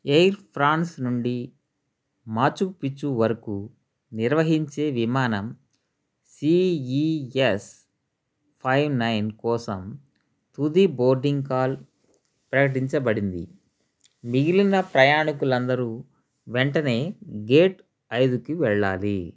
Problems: none marked